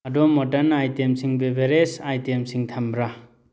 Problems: none marked